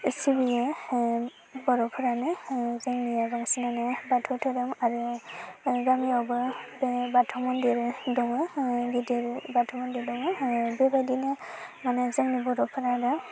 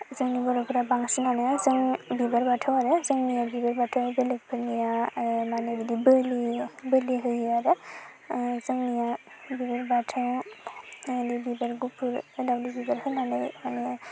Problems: constant background noise